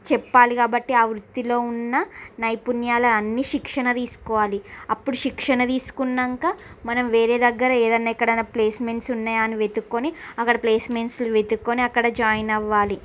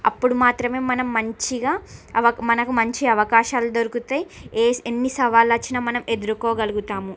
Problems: none marked